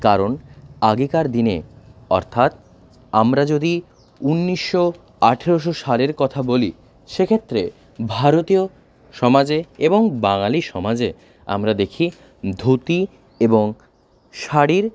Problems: background sounds at intervals